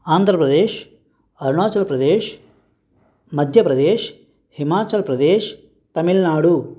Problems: background sounds at intervals